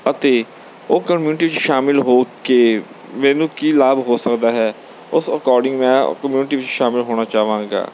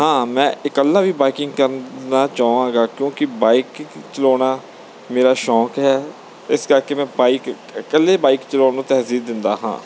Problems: background sounds at intervals